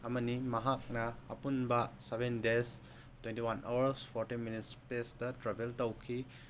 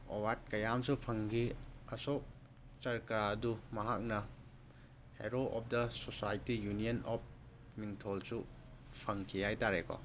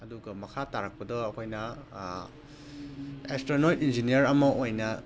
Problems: background sounds at intervals